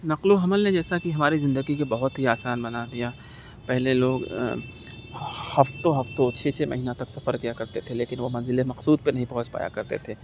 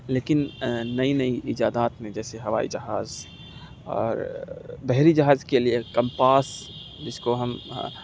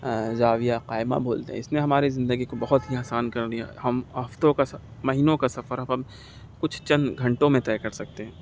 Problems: none marked